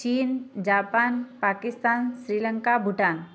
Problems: background sounds at intervals, background conversations at intervals